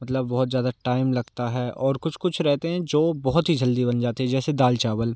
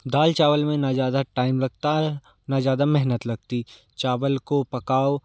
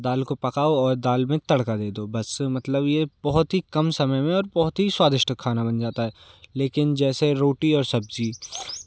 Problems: none marked